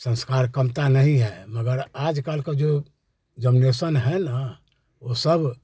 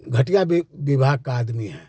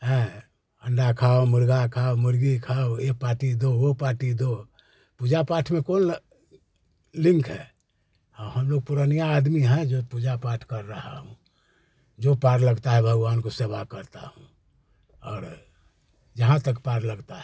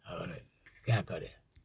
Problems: none marked